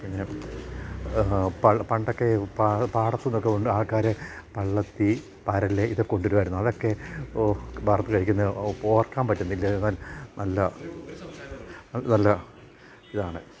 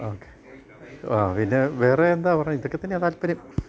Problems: background conversations at intervals